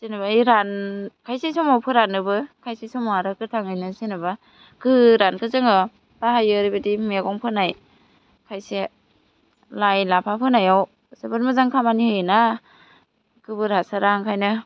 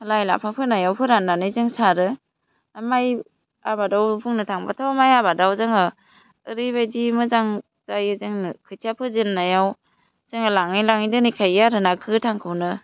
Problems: none marked